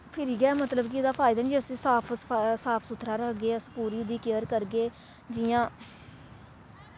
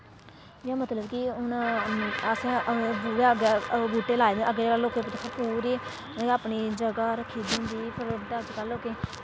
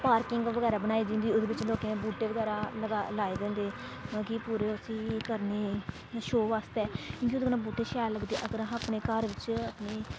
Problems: constant background noise